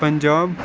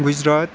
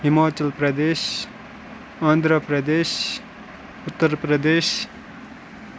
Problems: constant background noise